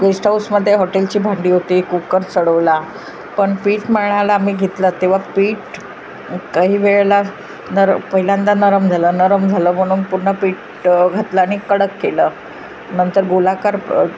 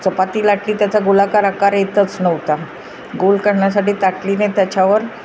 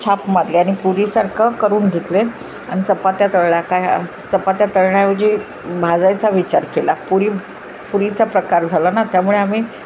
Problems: background sounds at intervals